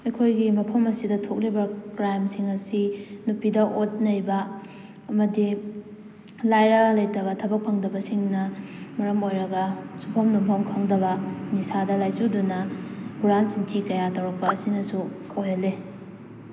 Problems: constant background noise